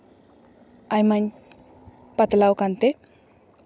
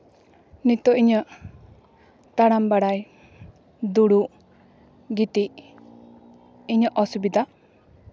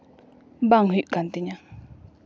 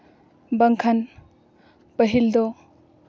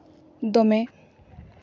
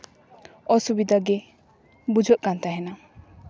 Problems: background sounds at intervals